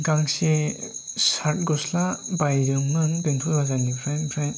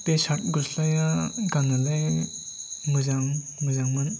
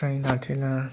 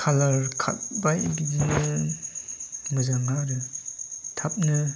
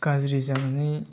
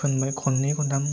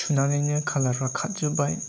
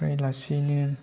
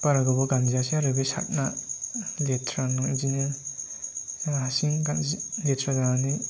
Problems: none marked